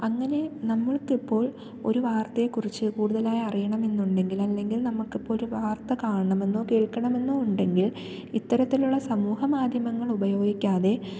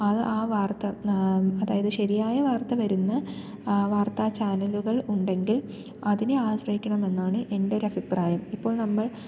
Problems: low volume